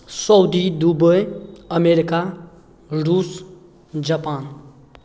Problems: none marked